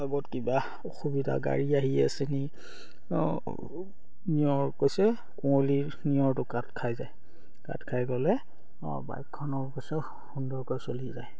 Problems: none marked